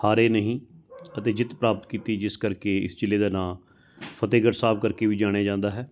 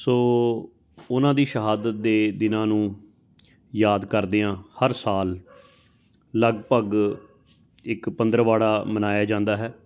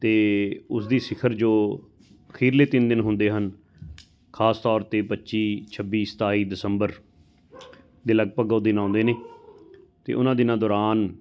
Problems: constant background noise